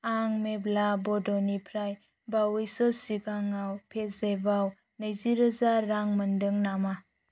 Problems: none marked